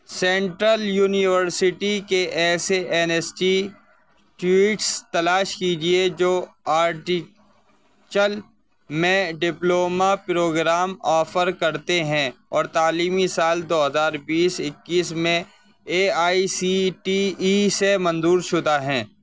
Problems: constant background noise